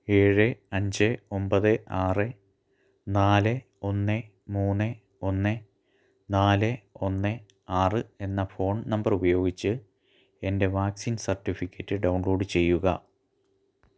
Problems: low volume